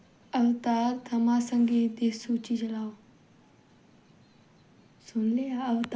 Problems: background sounds at intervals, background conversations at intervals